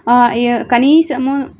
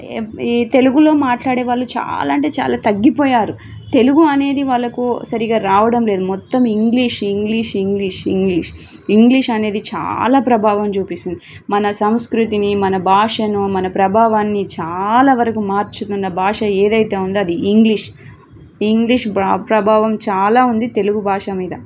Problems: background sounds at intervals